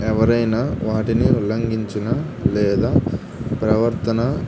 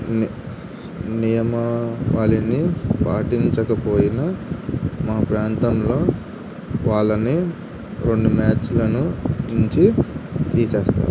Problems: constant background noise